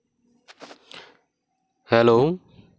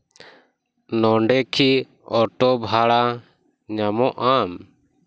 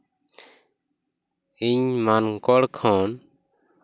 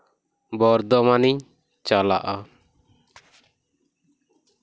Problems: background sounds at intervals